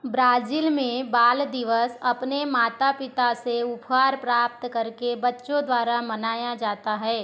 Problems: background sounds at intervals, background conversations at intervals